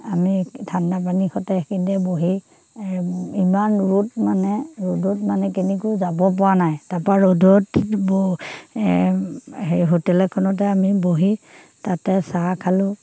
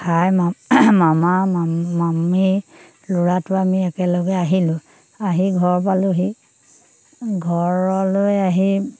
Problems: background sounds at intervals